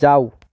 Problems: none marked